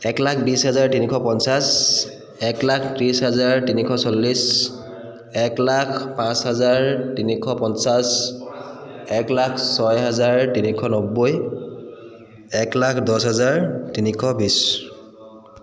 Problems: continuous background conversations